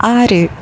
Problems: background sounds at intervals